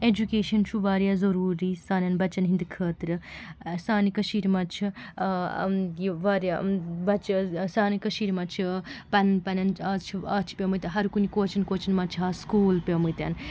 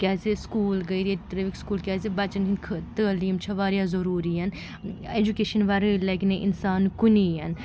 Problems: constant background noise